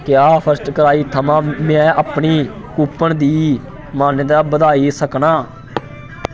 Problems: constant background noise